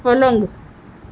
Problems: none marked